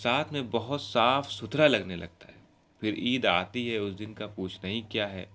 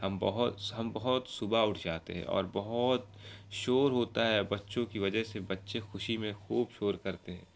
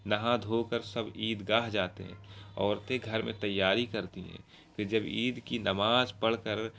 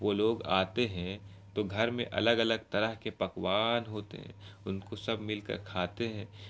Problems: constant background noise